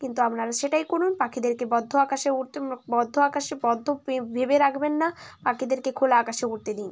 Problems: none marked